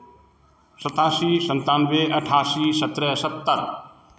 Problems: background sounds at intervals